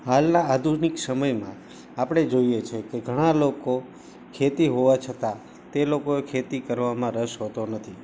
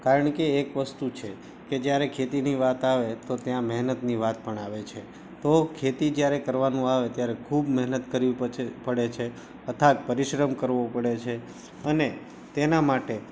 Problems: background sounds at intervals